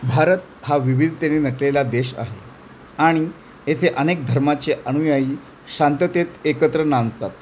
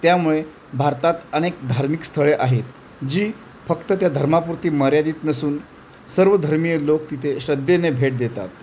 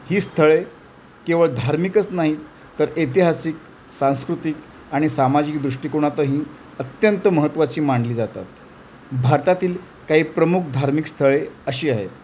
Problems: none marked